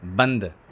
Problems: none marked